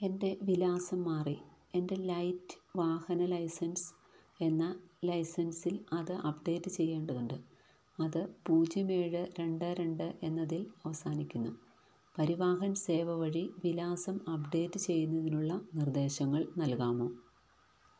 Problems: low volume